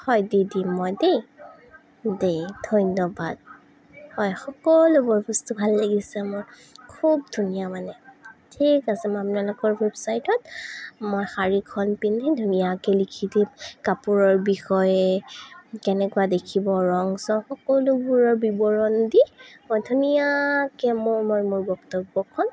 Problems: none marked